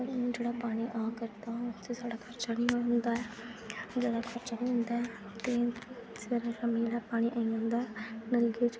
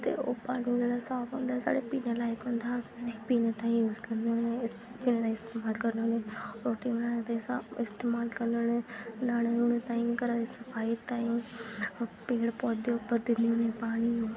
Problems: constant background noise